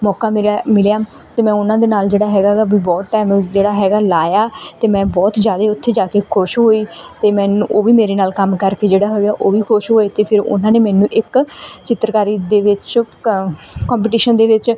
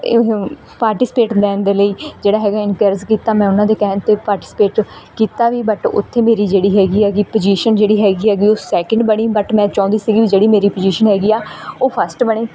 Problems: none marked